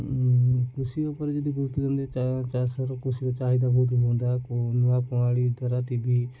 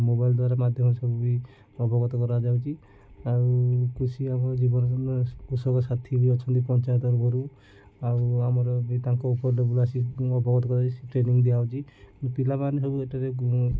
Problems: none marked